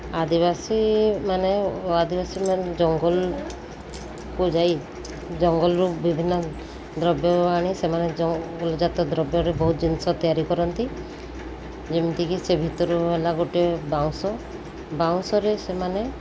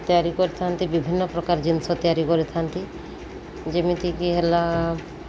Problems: constant background noise